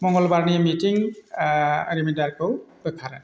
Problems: constant background noise